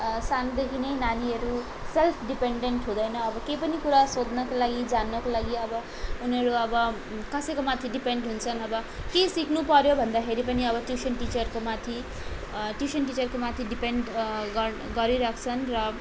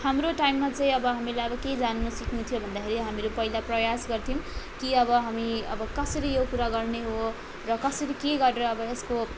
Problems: constant background noise